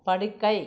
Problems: background conversations at intervals